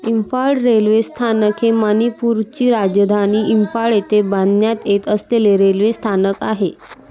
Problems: background sounds at intervals